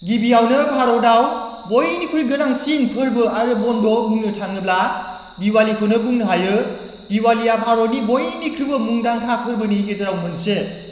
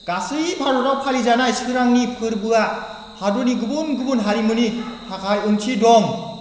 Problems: none marked